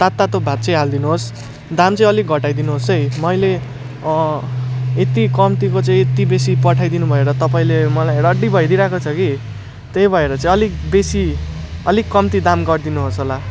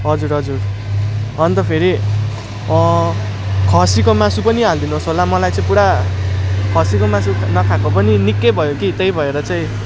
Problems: constant background noise